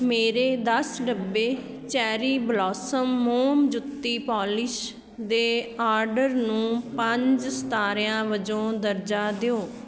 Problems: background sounds at intervals, continuous background conversations